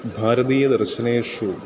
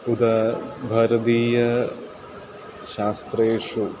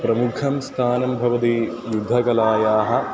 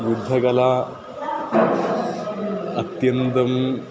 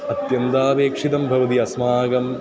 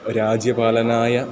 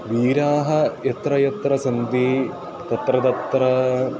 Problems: constant background noise, continuous background conversations